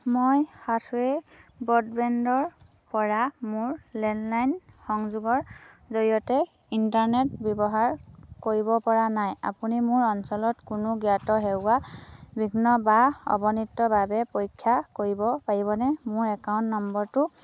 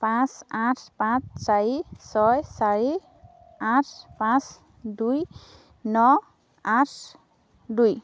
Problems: none marked